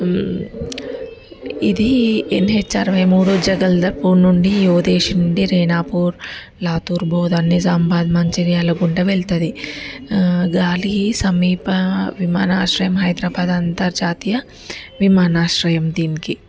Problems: background sounds at intervals, background conversations at intervals